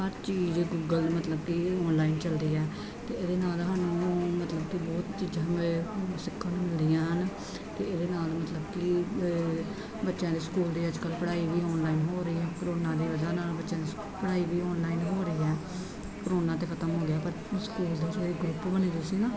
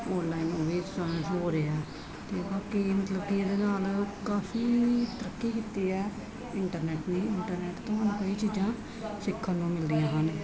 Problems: constant background noise